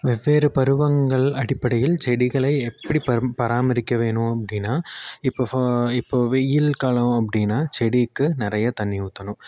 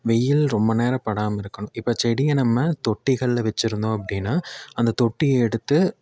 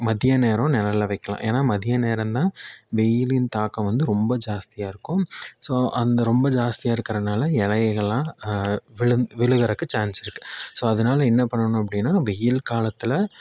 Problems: none marked